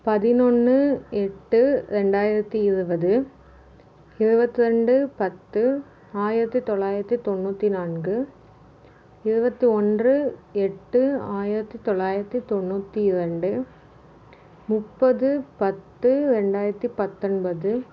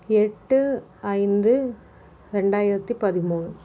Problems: none marked